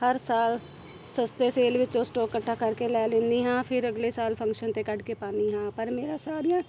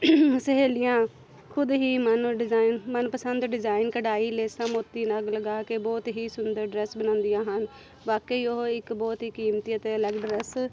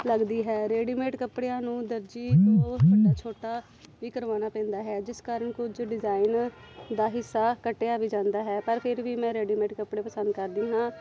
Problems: constant background noise, background conversations at intervals